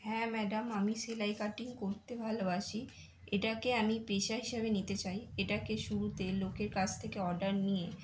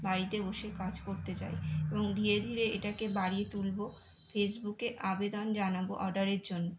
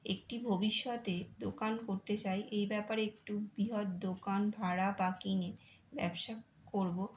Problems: constant background noise